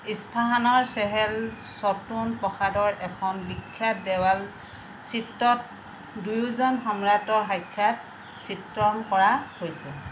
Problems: none marked